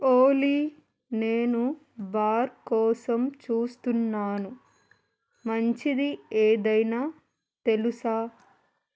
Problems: none marked